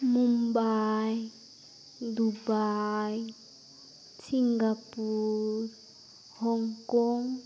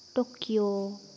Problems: none marked